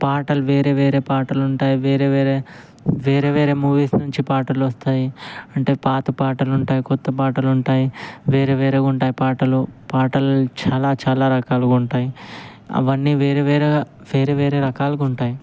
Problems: constant background noise